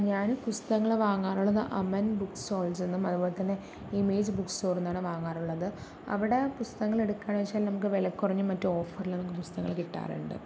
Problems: none marked